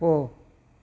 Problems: none marked